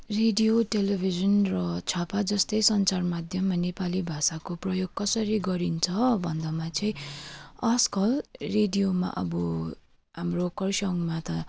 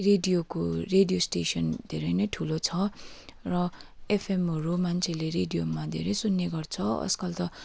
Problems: none marked